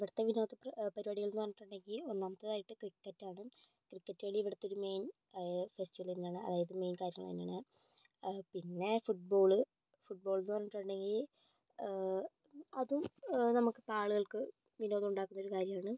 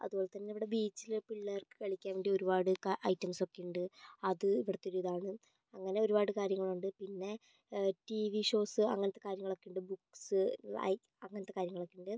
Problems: low volume